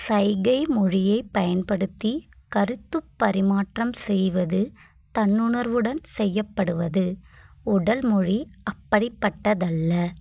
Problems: none marked